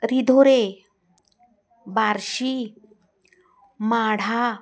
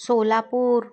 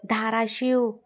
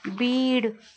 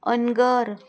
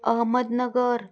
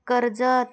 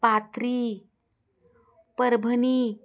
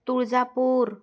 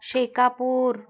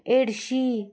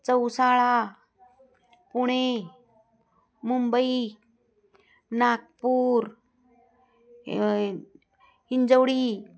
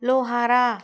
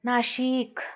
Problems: background sounds at intervals